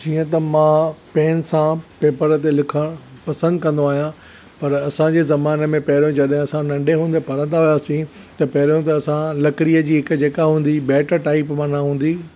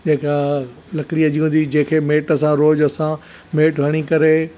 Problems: none marked